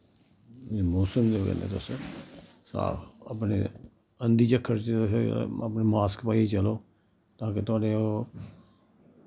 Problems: none marked